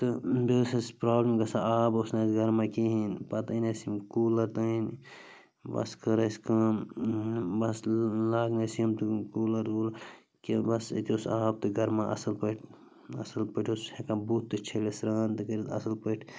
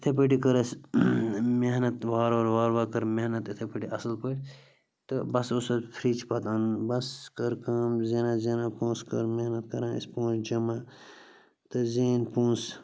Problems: constant background noise